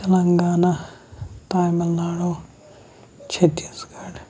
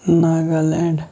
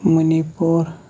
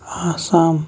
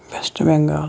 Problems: background sounds at intervals